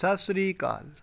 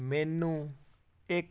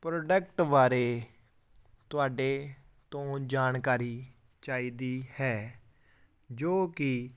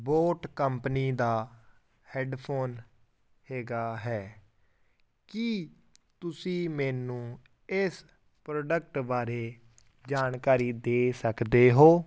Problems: none marked